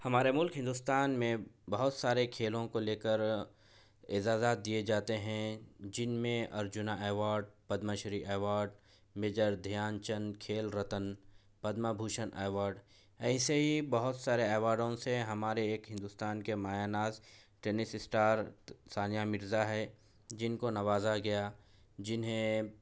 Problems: none marked